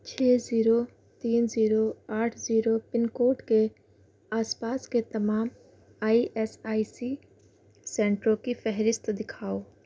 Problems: constant background noise